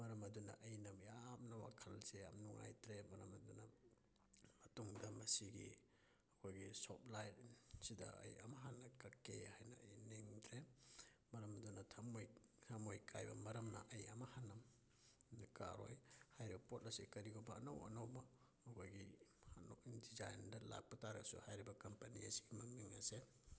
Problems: low volume